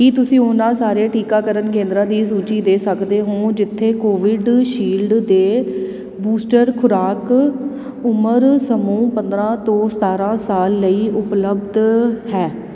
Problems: background sounds at intervals